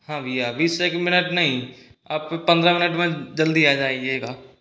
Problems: constant background noise